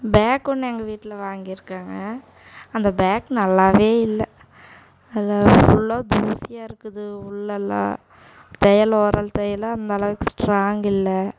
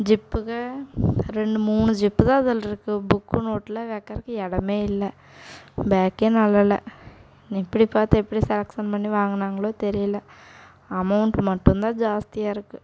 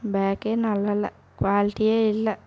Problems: background sounds at intervals